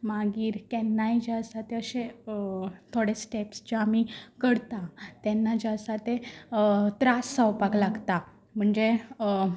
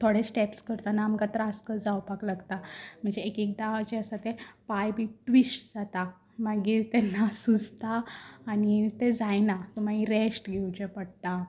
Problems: constant background noise